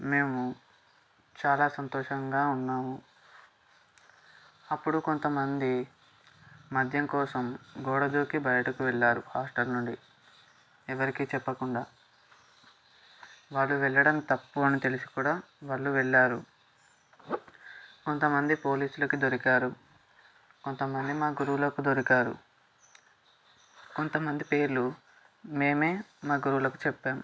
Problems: background sounds at intervals